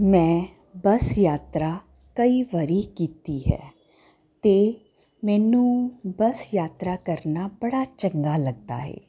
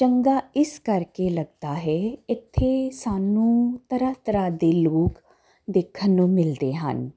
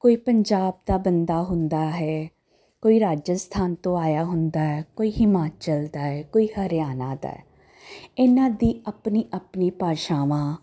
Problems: none marked